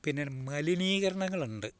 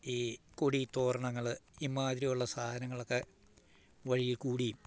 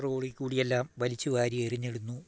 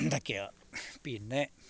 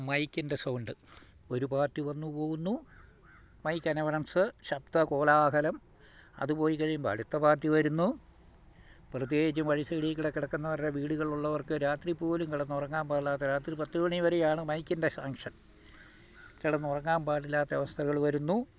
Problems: none marked